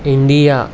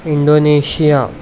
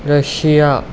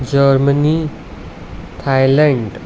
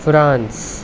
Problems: background sounds at intervals